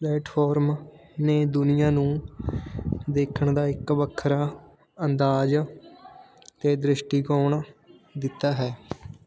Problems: background sounds at intervals, continuous background conversations